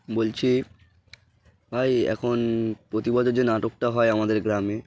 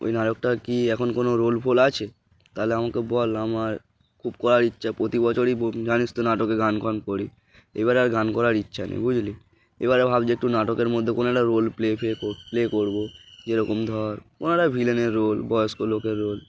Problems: background sounds at intervals, background conversations at intervals